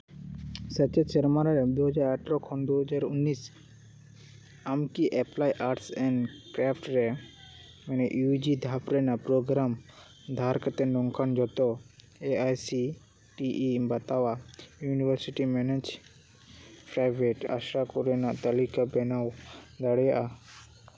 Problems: constant background noise